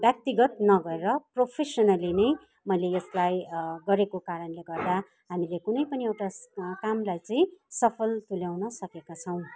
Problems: constant background noise, background conversations at intervals